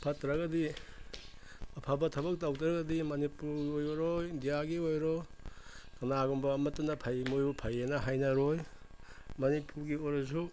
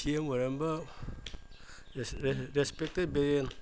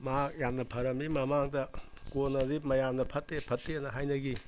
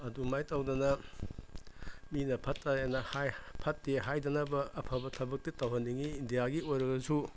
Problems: background sounds at intervals